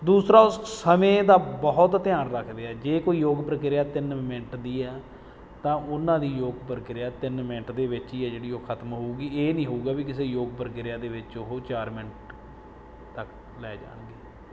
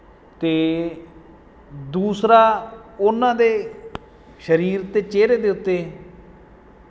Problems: background sounds at intervals